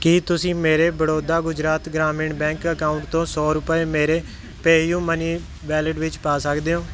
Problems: none marked